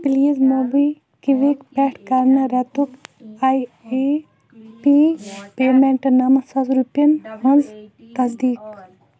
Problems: background sounds at intervals, background conversations at intervals